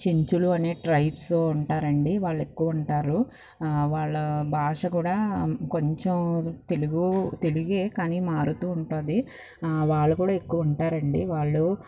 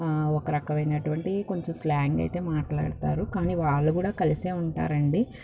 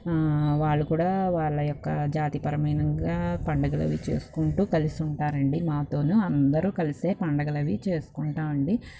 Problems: none marked